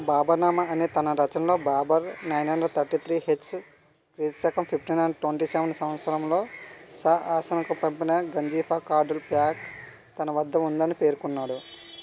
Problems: constant background noise